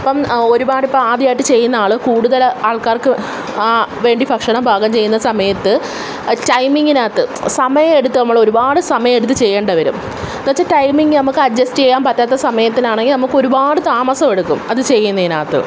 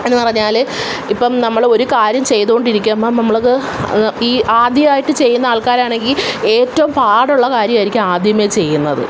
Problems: none marked